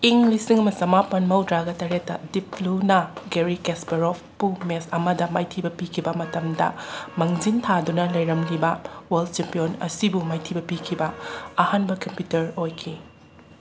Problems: constant background noise